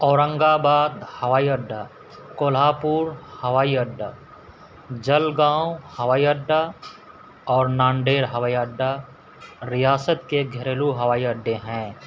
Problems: constant background noise